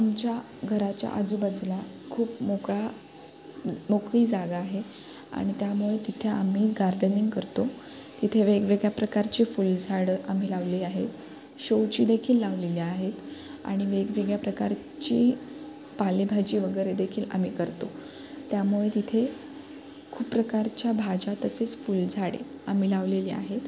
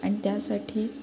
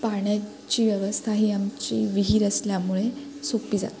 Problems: constant background noise